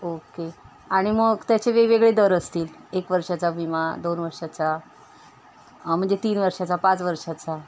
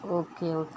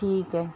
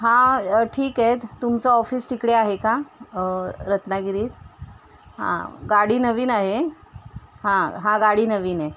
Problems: constant background noise